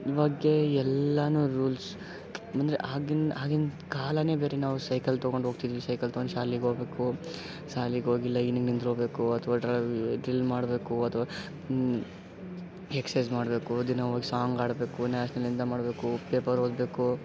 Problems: none marked